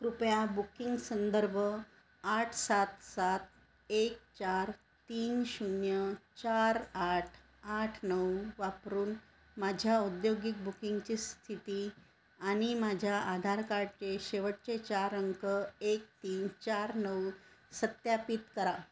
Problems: none marked